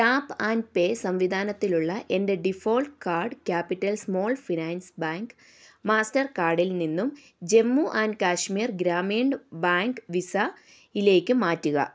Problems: none marked